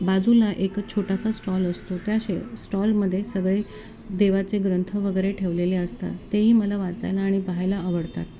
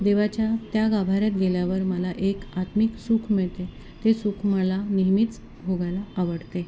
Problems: constant background noise, background conversations at intervals